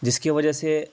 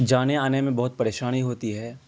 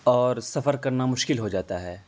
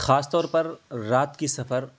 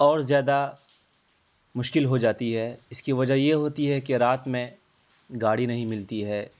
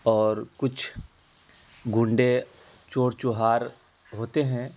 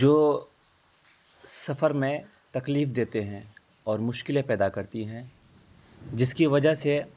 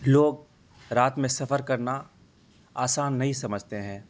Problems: constant background noise